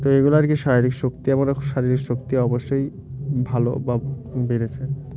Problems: none marked